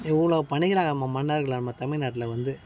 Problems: background sounds at intervals